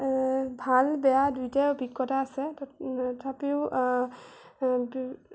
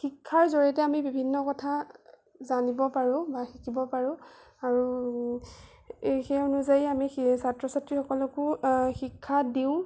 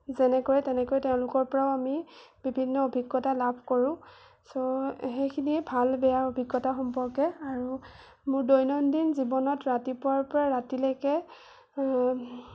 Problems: none marked